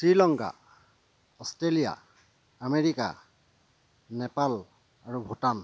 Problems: constant background noise, low volume